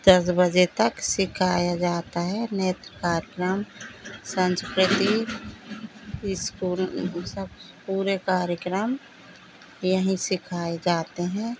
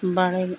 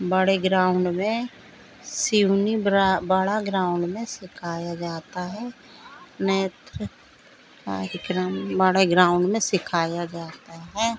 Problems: none marked